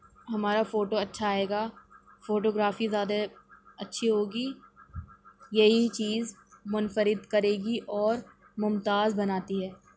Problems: constant background noise